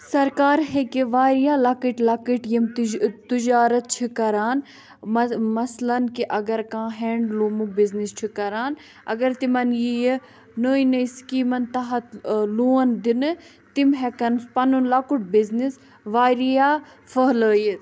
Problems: none marked